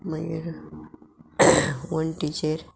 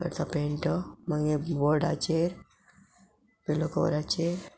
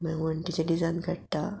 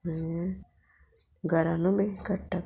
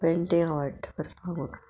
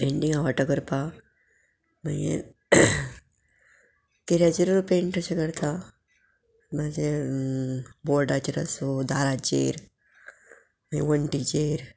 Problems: background sounds at intervals